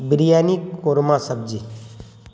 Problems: constant background noise